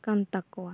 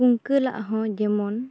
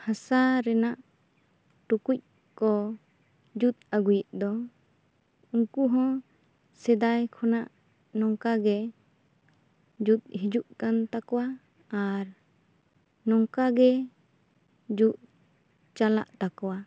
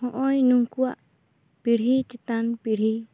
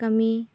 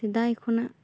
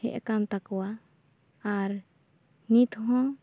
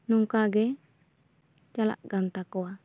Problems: none marked